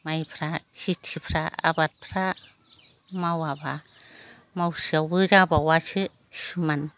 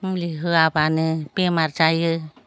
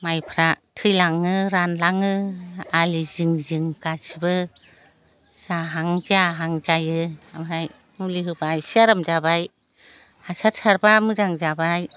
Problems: none marked